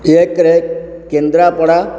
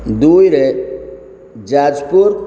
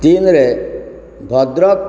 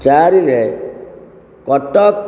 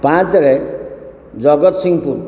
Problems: constant background noise